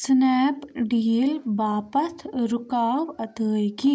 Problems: background sounds at intervals